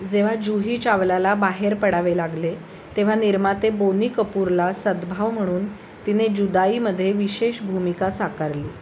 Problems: none marked